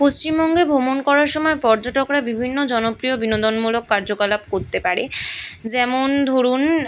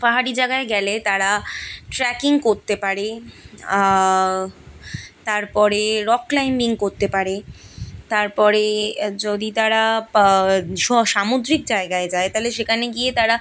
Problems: background sounds at intervals